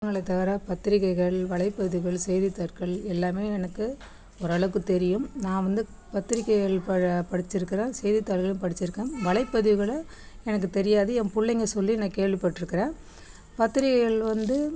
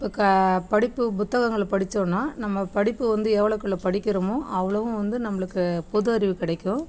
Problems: background sounds at intervals, background conversations at intervals